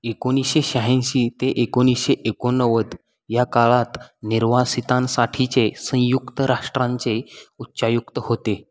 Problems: none marked